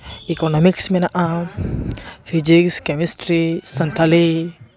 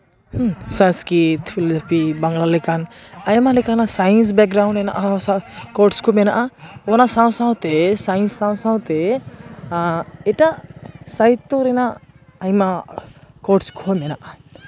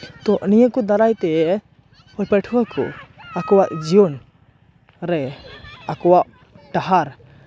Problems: constant background noise, continuous background conversations